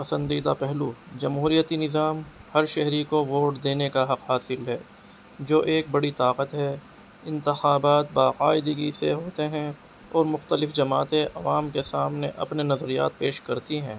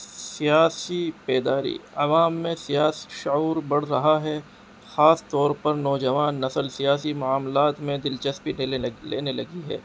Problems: constant background noise